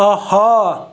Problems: none marked